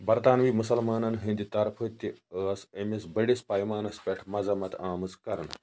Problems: low volume